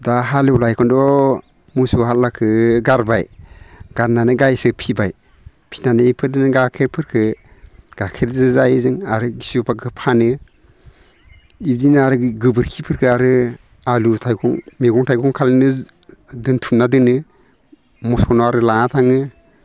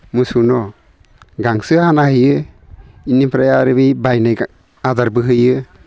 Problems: none marked